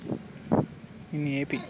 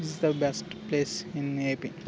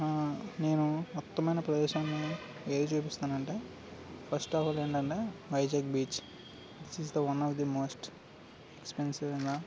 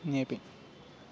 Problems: constant background noise